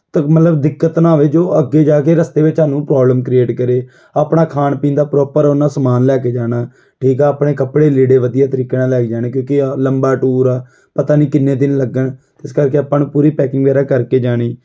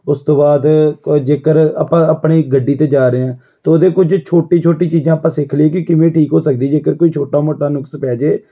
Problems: background sounds at intervals